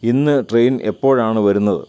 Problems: none marked